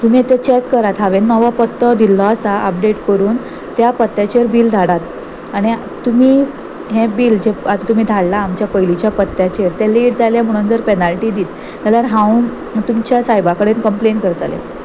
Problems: none marked